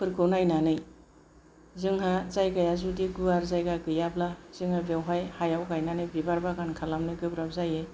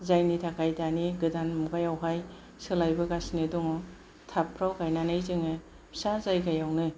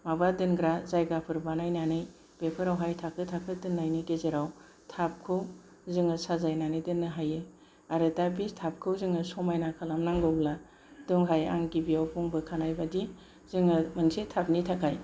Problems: none marked